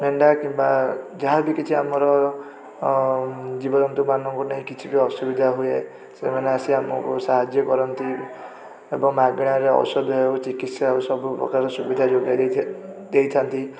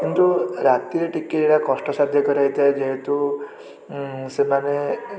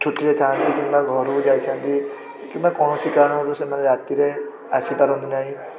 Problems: constant background noise